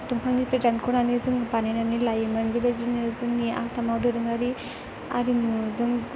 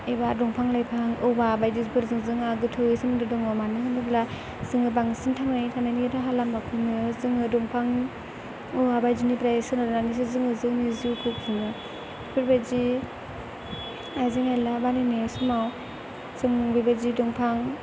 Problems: constant background noise